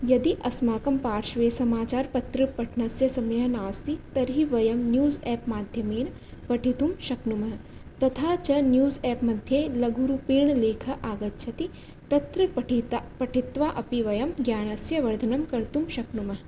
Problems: none marked